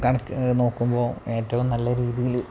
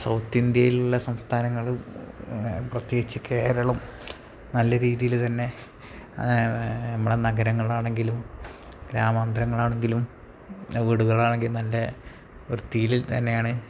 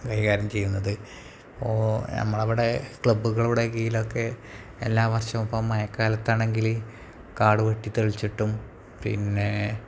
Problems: low volume